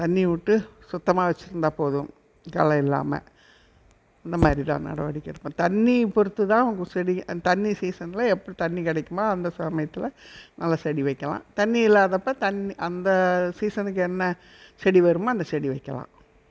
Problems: none marked